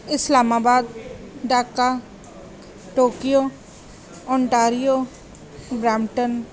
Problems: background conversations at intervals